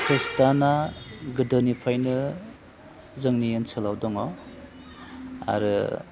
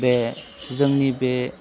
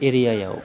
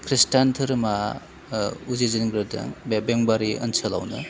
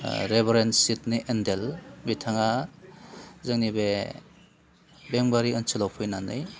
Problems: constant background noise